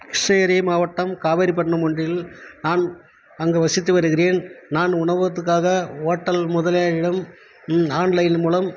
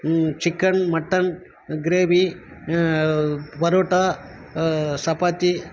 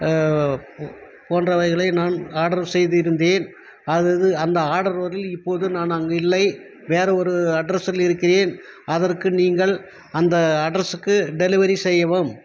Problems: none marked